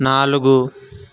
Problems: constant background noise